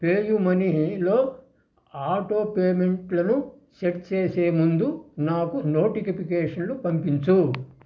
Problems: constant background noise